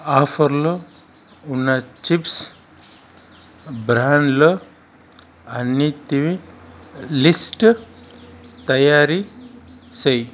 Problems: constant background noise